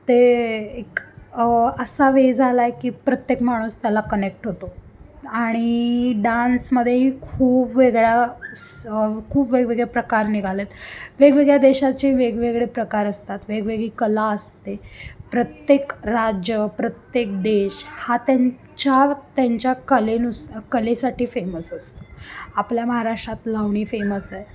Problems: constant background noise, background conversations at intervals